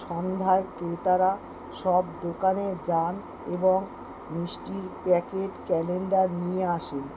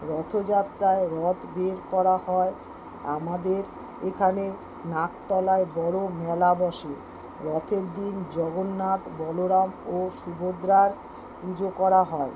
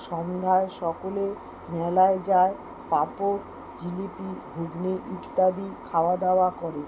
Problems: constant background noise